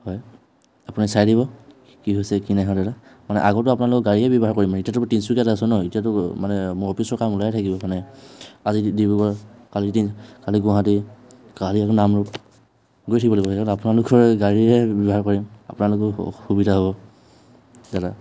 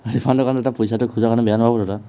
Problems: background sounds at intervals, background conversations at intervals